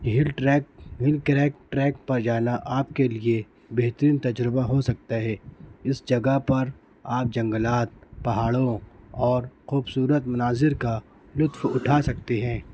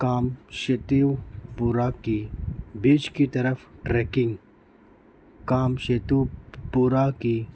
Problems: constant background noise